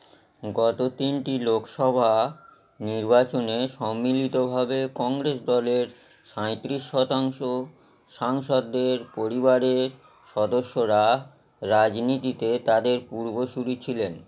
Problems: constant background noise